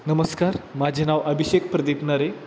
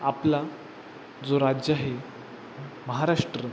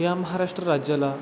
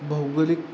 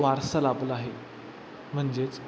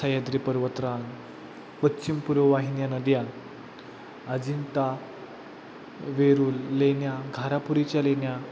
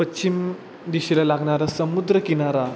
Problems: constant background noise